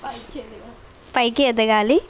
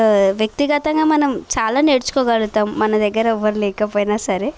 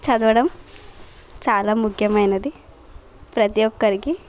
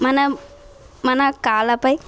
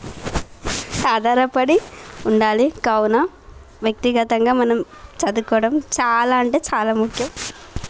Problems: constant background noise